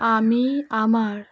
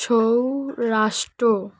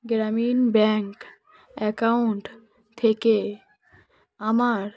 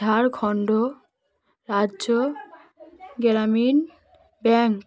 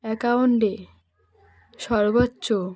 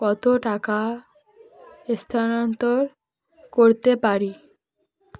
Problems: background sounds at intervals, background conversations at intervals